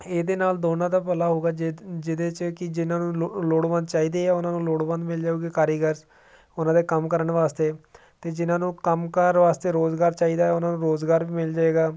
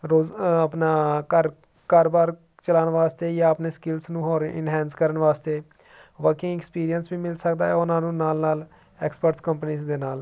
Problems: none marked